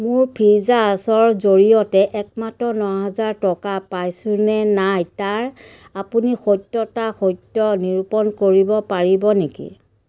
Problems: background sounds at intervals